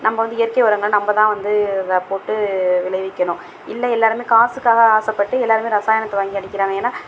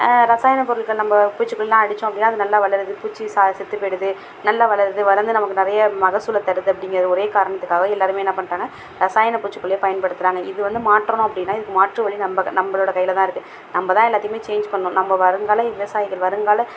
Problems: background sounds at intervals